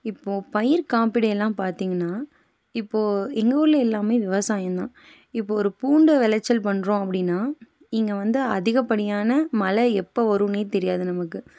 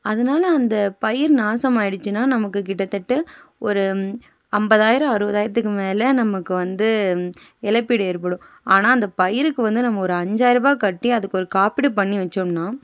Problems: background conversations at intervals